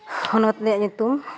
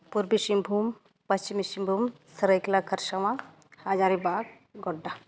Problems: none marked